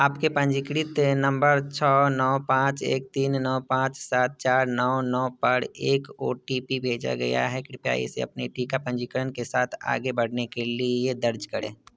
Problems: background sounds at intervals